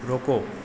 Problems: none marked